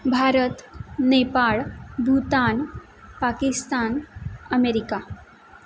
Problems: background sounds at intervals